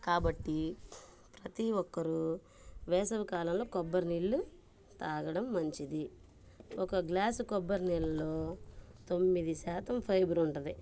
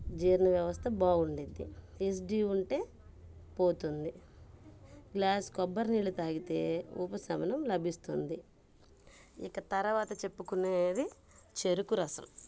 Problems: background sounds at intervals, low volume